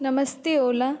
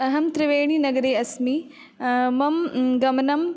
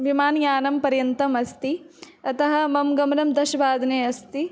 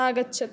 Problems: none marked